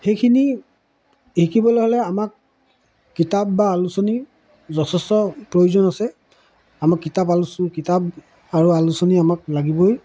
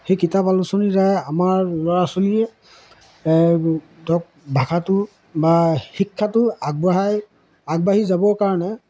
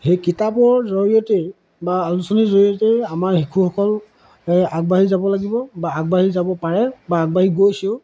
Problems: none marked